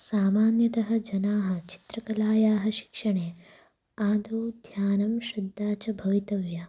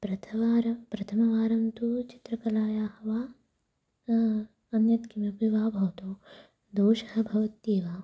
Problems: low volume